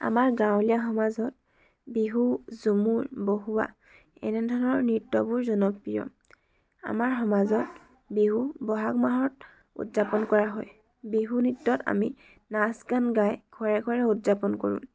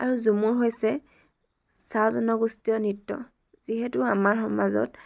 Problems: background sounds at intervals, background conversations at intervals